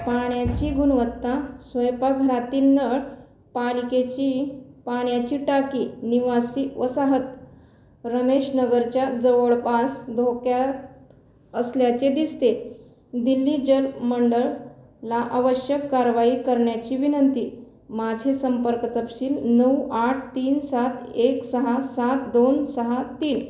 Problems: constant background noise